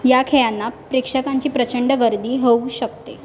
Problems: none marked